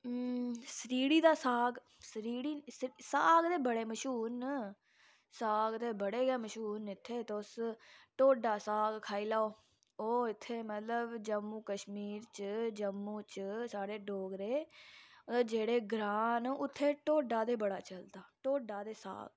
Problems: low volume